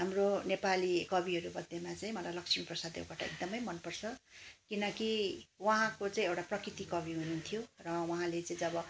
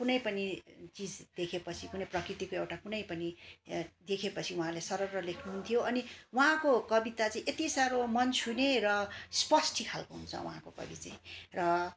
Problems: background sounds at intervals, background conversations at intervals